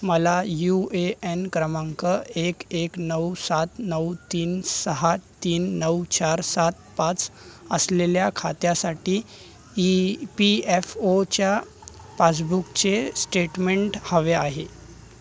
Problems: none marked